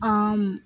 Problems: background sounds at intervals